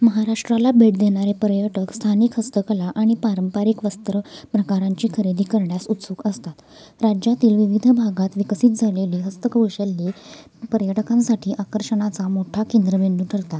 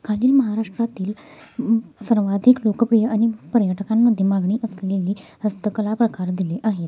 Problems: constant background noise, background conversations at intervals